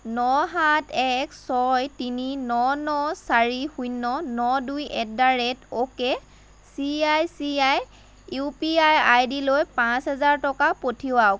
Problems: none marked